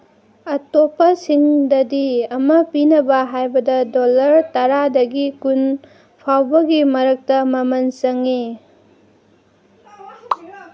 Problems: none marked